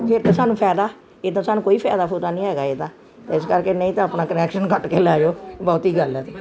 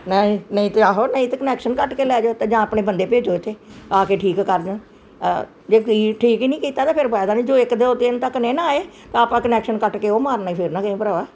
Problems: constant background noise